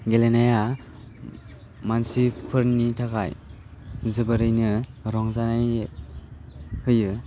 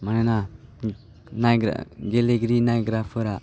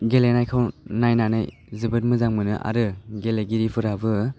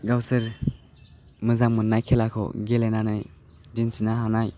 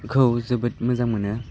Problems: none marked